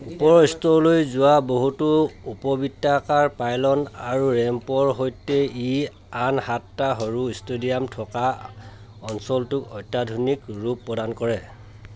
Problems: constant background noise, continuous background conversations